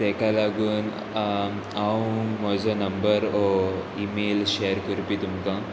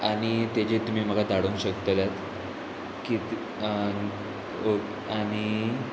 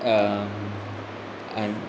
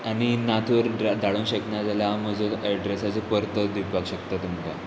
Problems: constant background noise